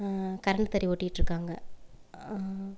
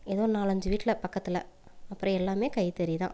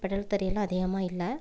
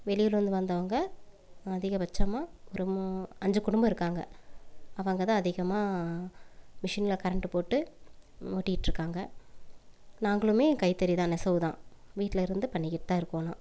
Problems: none marked